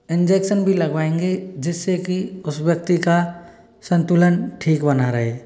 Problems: none marked